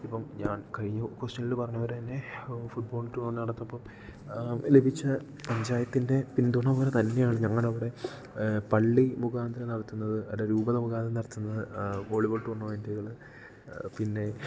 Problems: low volume